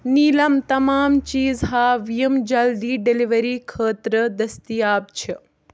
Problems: none marked